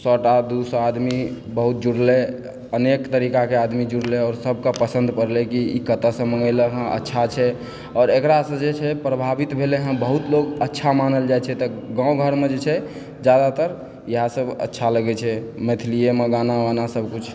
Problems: background sounds at intervals, background conversations at intervals